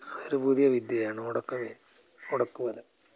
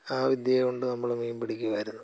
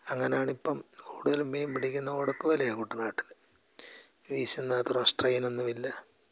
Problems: low volume